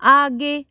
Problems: background sounds at intervals